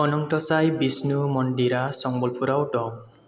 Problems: low volume